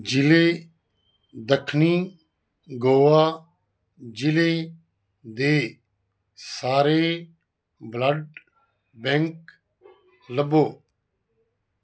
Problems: none marked